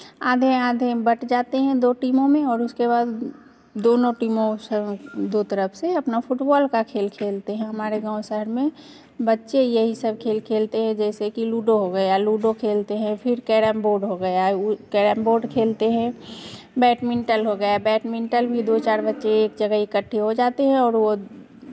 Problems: none marked